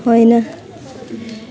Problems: constant background noise, low volume